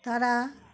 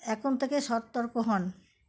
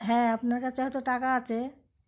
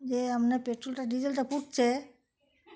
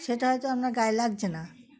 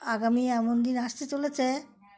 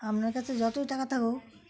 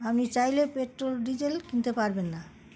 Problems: constant background noise, background conversations at intervals